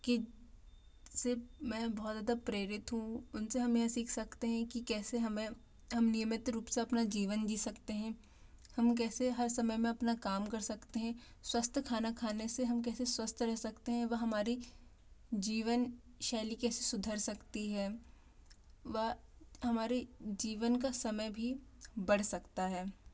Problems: low volume